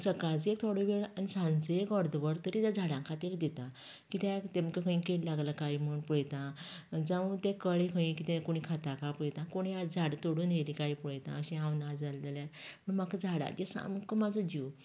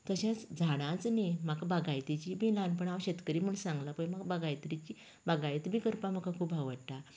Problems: continuous background conversations